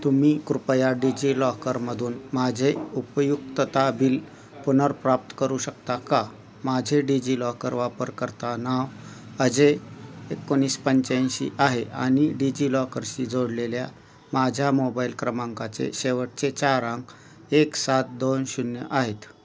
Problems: constant background noise, continuous background conversations